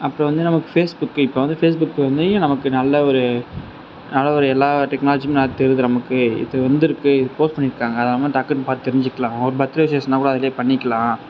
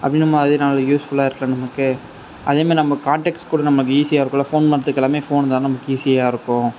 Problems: constant background noise